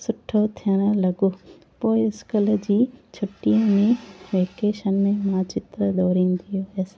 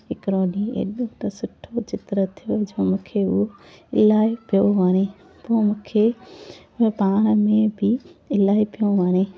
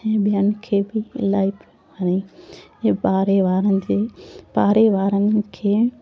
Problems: constant background noise